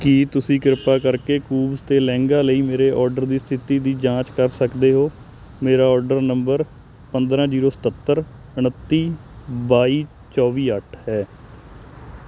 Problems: constant background noise